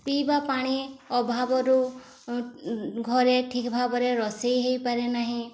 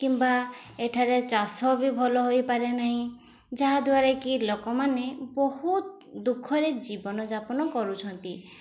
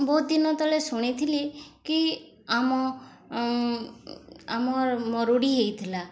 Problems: constant background noise, background conversations at intervals